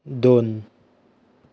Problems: none marked